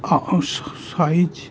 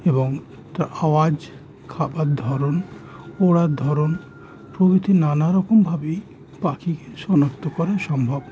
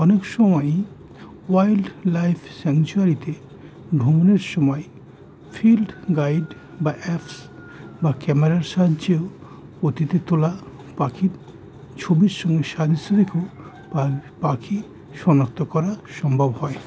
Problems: none marked